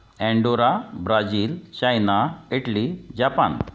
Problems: background sounds at intervals